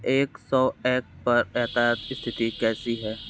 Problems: constant background noise